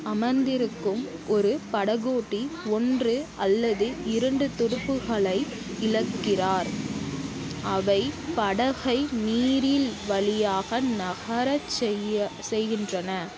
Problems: background sounds at intervals